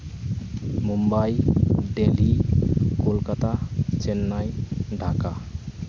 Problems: constant background noise